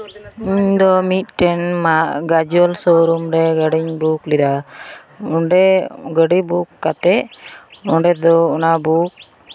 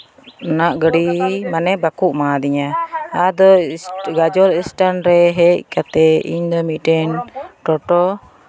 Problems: constant background noise, continuous background conversations